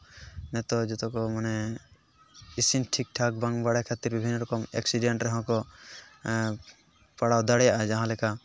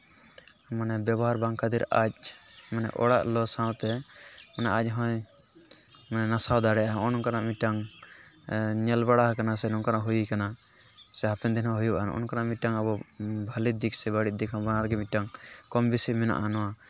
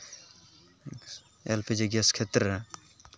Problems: background sounds at intervals